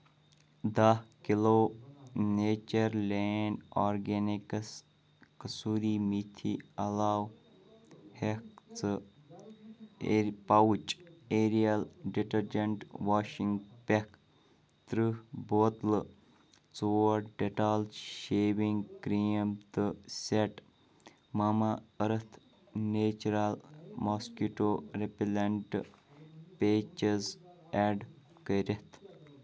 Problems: none marked